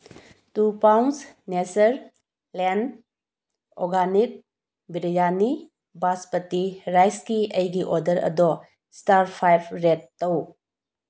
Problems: none marked